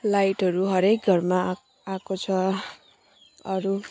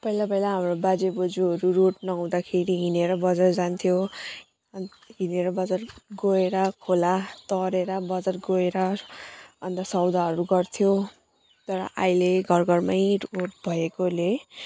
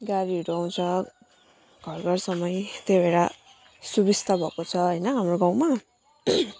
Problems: none marked